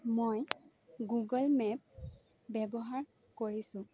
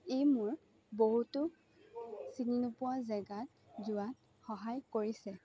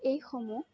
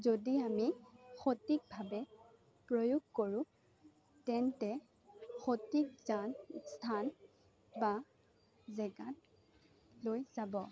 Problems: low volume